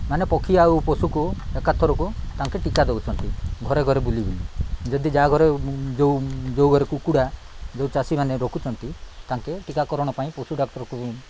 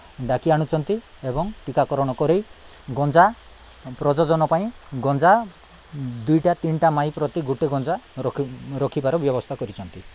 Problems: none marked